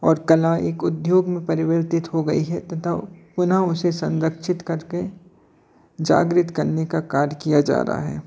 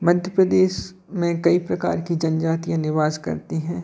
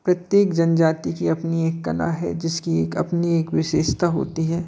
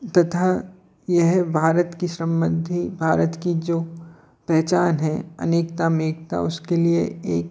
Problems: constant background noise, continuous background conversations